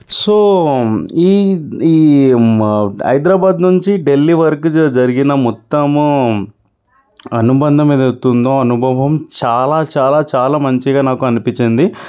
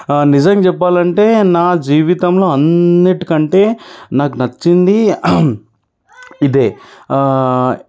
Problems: none marked